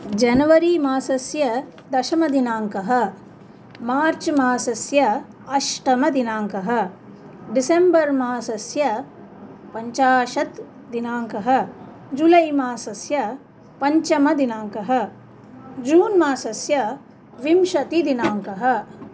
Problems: none marked